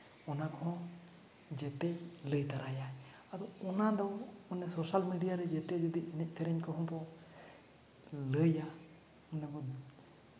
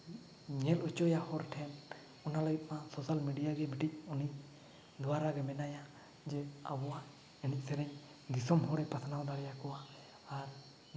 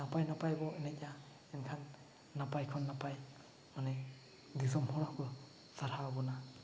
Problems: none marked